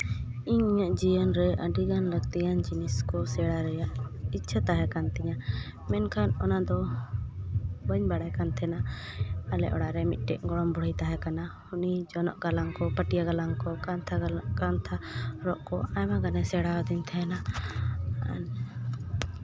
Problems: constant background noise